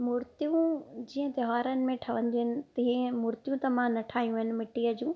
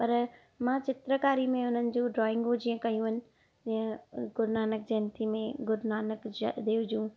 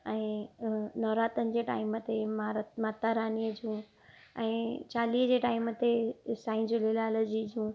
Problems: none marked